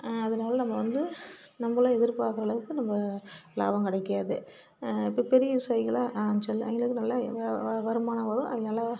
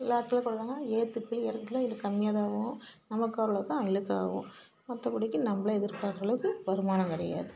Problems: constant background noise